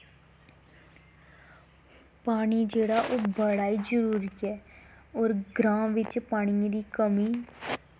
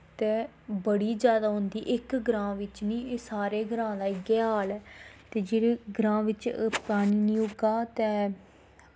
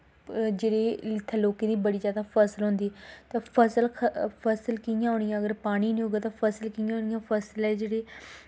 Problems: background sounds at intervals